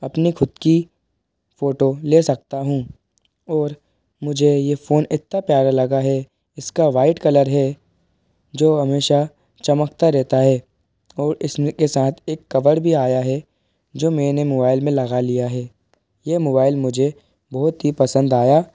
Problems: background sounds at intervals